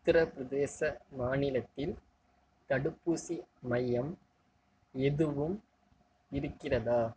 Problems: low volume